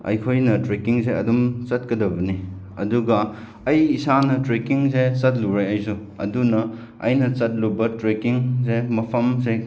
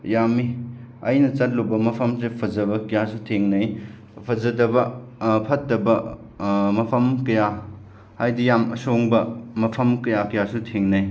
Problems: none marked